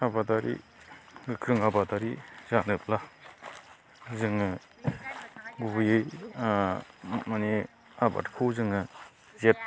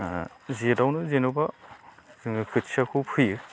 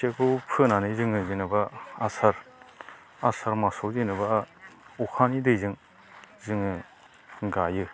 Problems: constant background noise